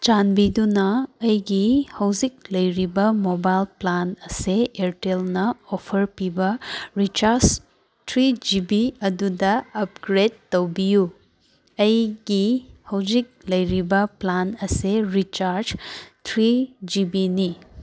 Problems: none marked